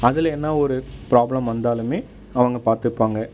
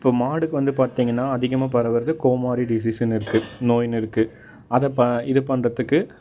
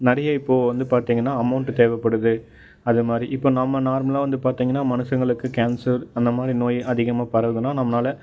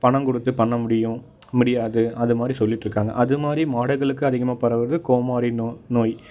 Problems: background sounds at intervals